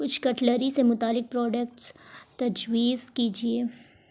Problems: none marked